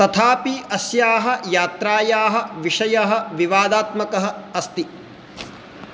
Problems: constant background noise